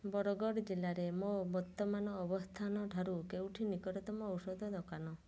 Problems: low volume